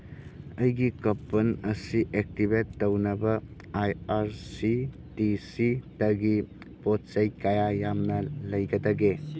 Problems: background conversations at intervals